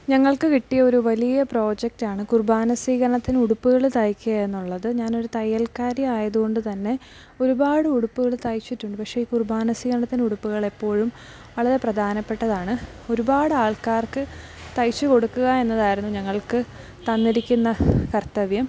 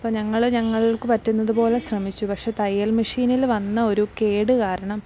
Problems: background sounds at intervals, low volume